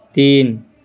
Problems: none marked